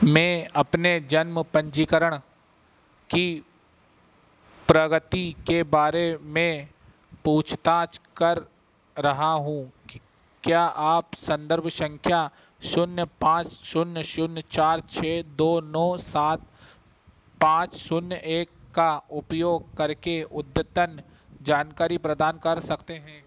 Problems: none marked